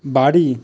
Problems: constant background noise